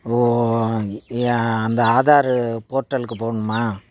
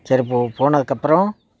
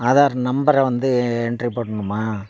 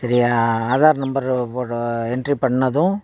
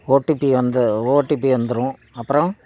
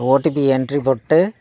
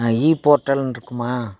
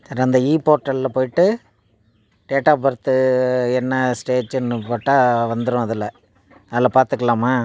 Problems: none marked